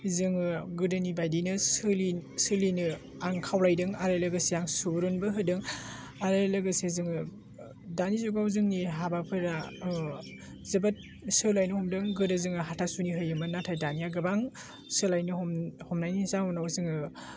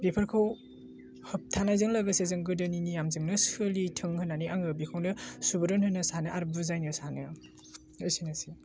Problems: constant background noise